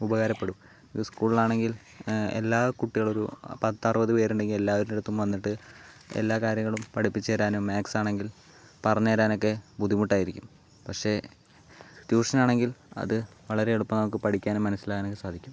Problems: background conversations at intervals